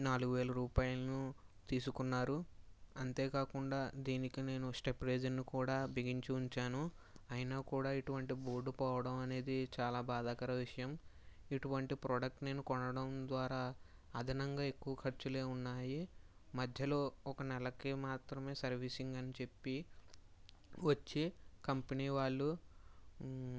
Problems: low volume